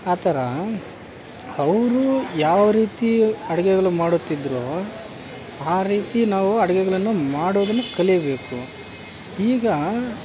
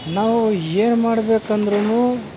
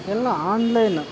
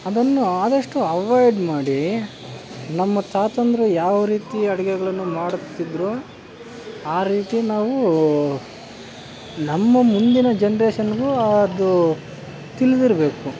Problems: constant background noise